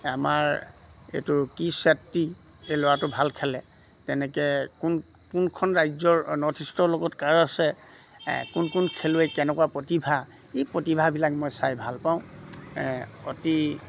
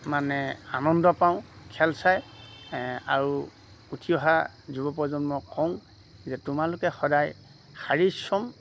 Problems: background sounds at intervals